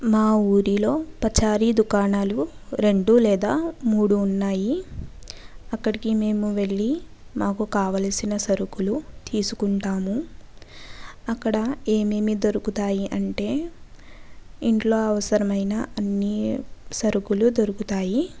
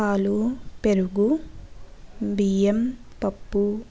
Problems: background sounds at intervals